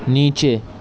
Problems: background sounds at intervals